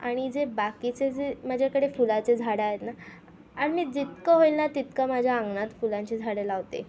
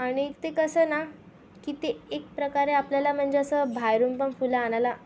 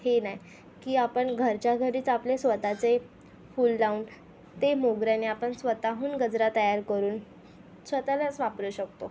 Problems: constant background noise